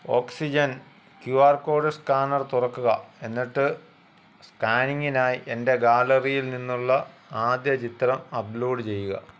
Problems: constant background noise